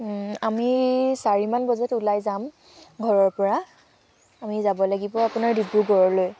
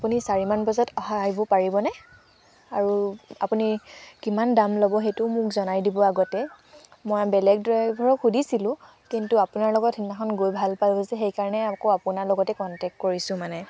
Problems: constant background noise